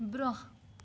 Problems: constant background noise